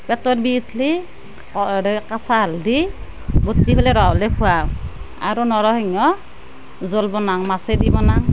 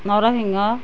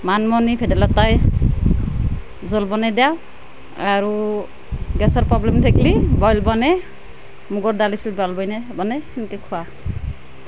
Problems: none marked